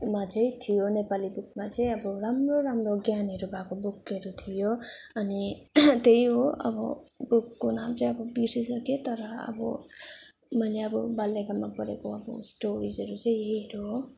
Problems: none marked